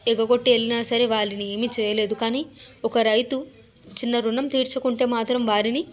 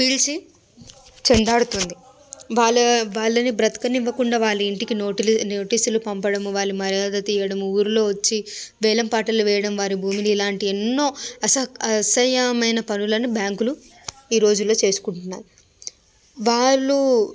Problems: background sounds at intervals, background conversations at intervals